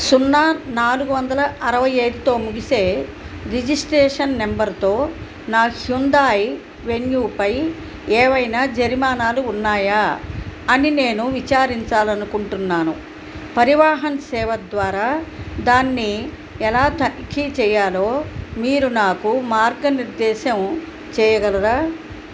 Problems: none marked